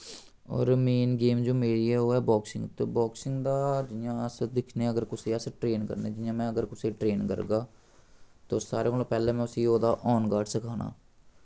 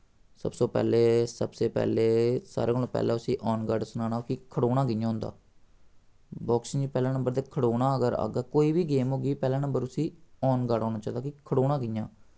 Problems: none marked